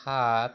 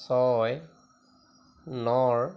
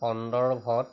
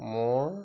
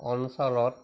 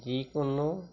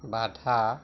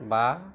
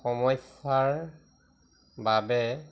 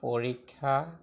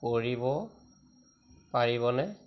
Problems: none marked